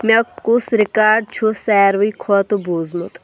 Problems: background sounds at intervals